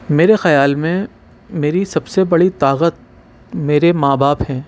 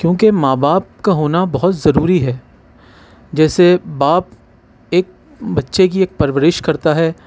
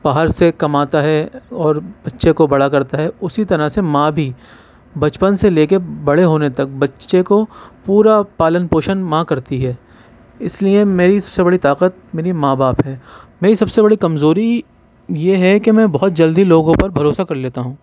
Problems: none marked